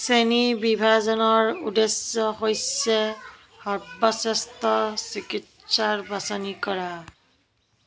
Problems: constant background noise, continuous background conversations